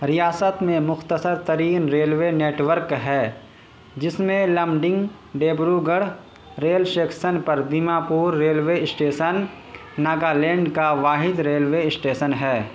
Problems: constant background noise